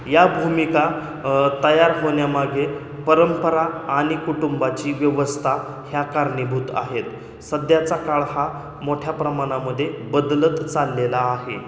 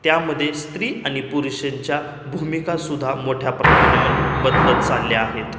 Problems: constant background noise